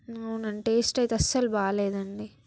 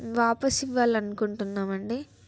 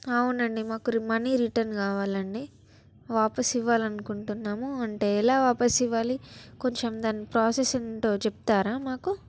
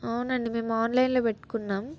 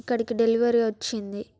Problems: background sounds at intervals